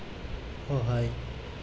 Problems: low volume